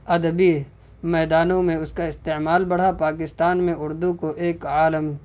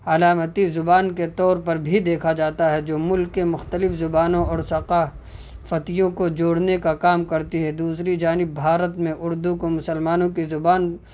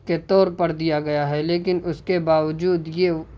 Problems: constant background noise